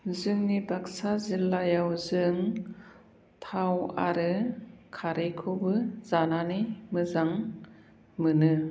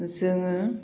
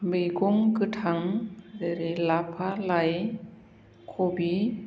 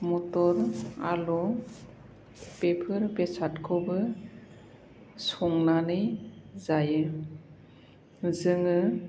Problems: low volume